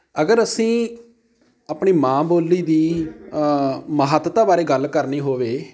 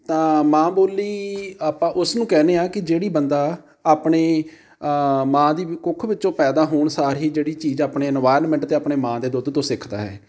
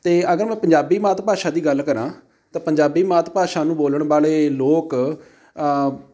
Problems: background sounds at intervals